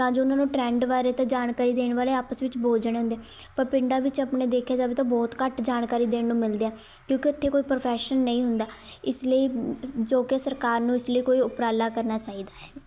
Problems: constant background noise, background conversations at intervals